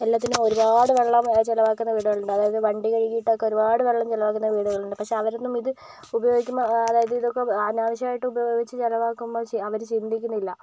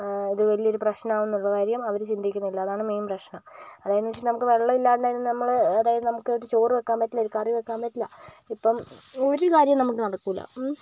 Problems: background sounds at intervals